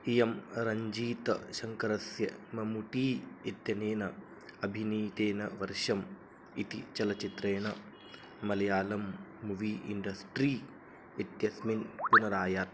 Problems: background sounds at intervals, low volume